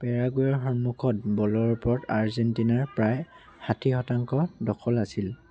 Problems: none marked